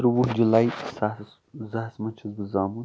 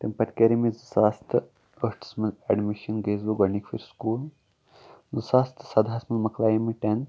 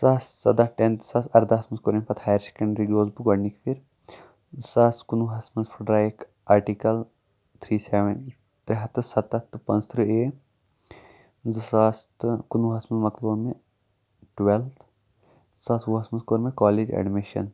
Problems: background sounds at intervals